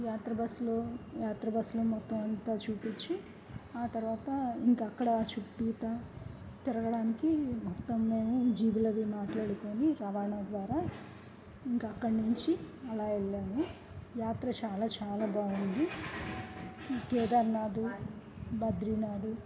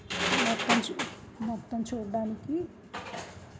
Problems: background conversations at intervals, low volume